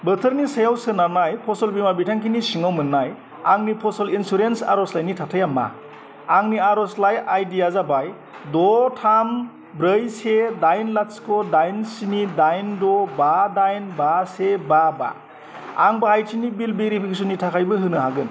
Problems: constant background noise